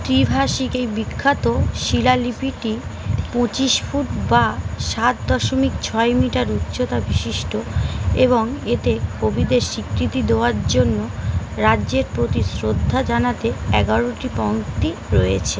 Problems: constant background noise